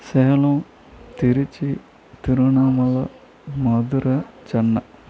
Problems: constant background noise, continuous background conversations